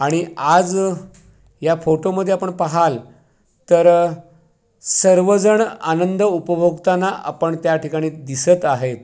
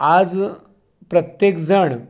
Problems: background sounds at intervals